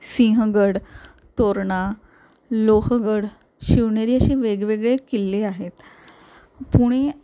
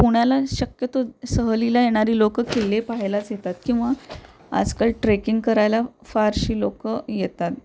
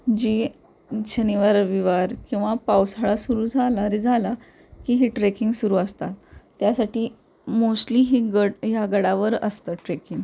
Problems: none marked